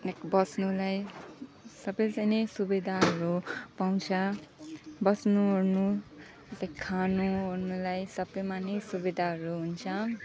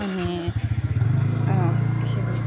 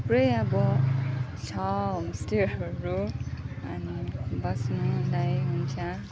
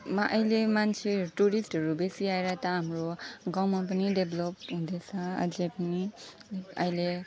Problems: constant background noise, background conversations at intervals, low volume